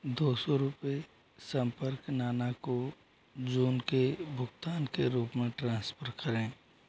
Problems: constant background noise, low volume